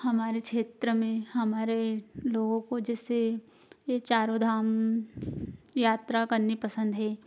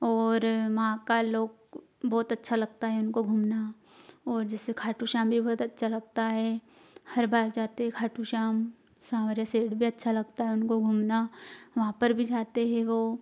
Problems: none marked